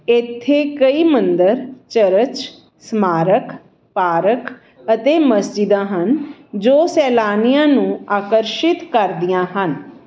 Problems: background sounds at intervals